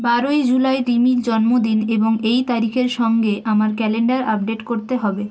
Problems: background sounds at intervals